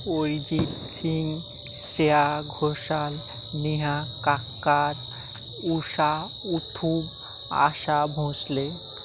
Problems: background sounds at intervals